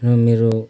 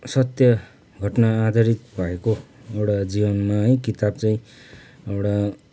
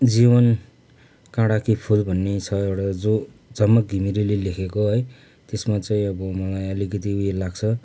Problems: background sounds at intervals